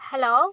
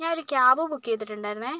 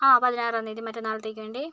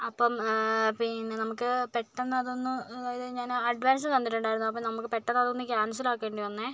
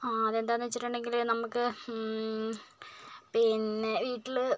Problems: low volume